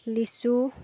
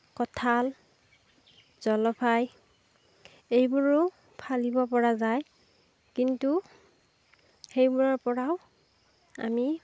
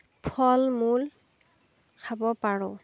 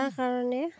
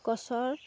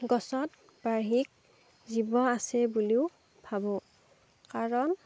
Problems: background sounds at intervals